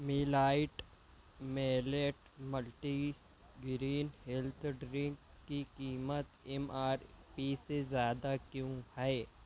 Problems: low volume